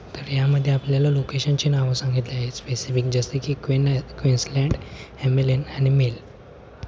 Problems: constant background noise